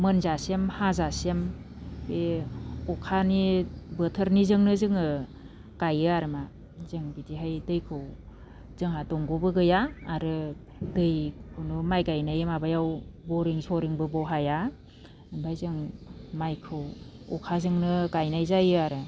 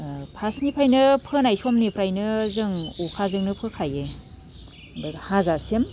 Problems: low volume